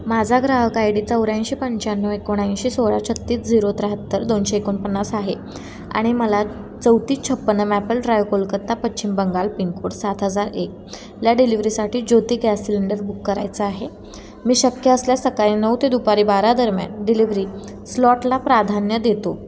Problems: none marked